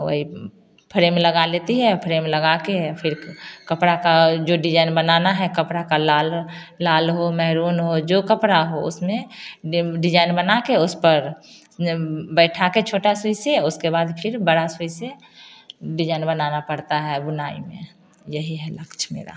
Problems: constant background noise